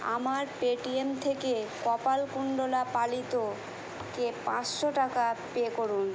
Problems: constant background noise